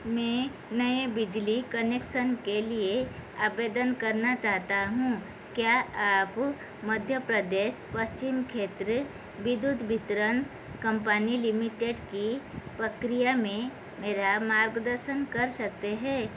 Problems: constant background noise